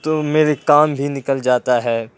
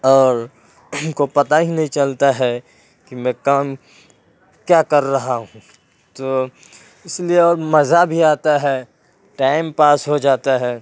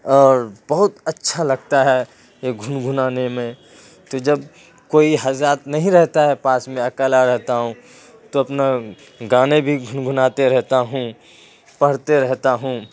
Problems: constant background noise